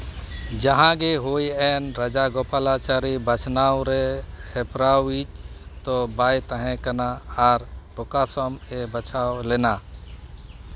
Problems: constant background noise